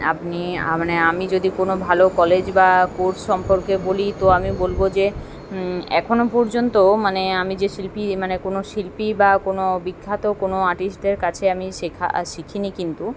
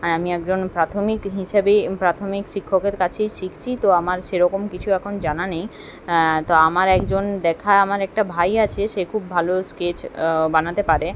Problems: background sounds at intervals